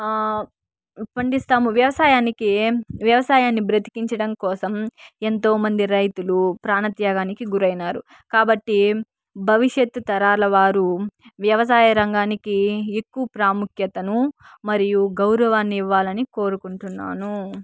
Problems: background sounds at intervals